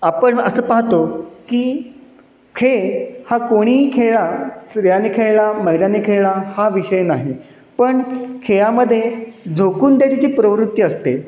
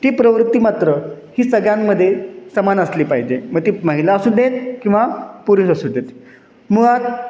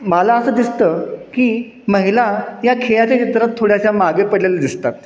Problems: constant background noise, echo